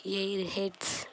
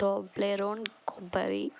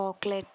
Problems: constant background noise